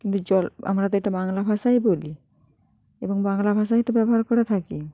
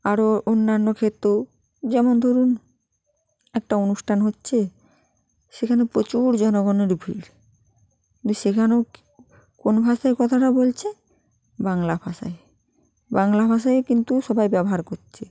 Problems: continuous background conversations